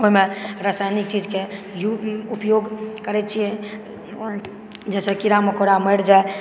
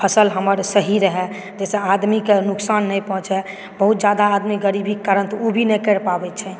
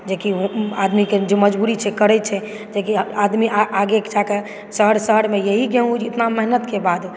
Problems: background sounds at intervals, background conversations at intervals